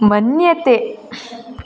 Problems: none marked